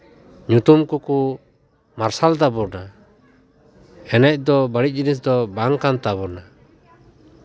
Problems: continuous background conversations